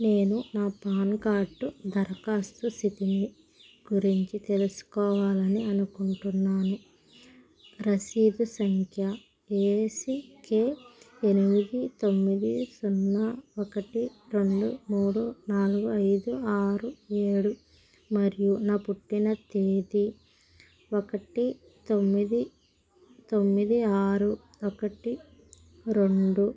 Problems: constant background noise